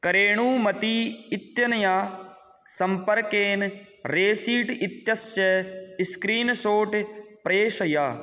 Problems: none marked